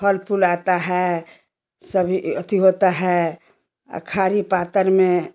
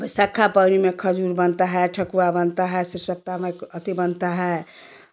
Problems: constant background noise